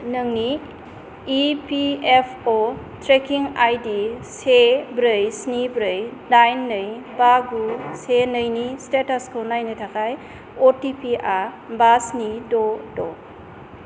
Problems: constant background noise